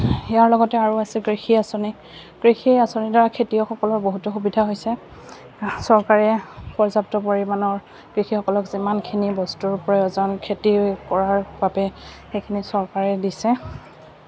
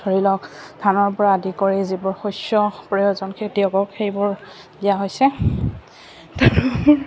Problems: none marked